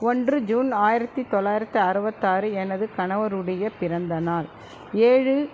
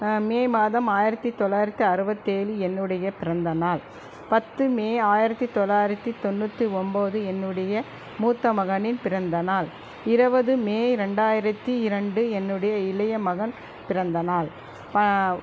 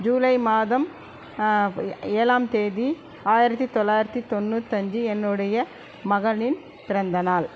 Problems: constant background noise